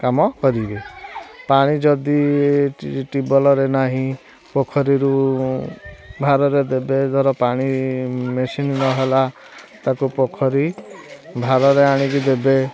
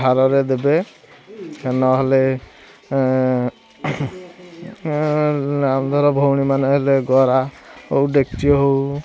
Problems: constant background noise, continuous background conversations